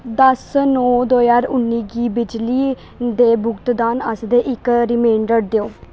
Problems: constant background noise